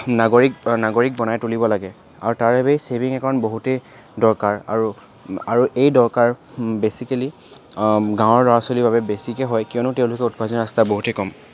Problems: constant background noise, background conversations at intervals